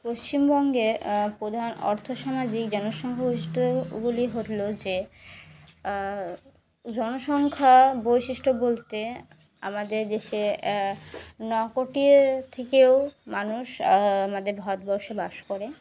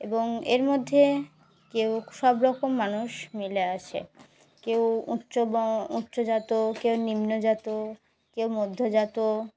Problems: background sounds at intervals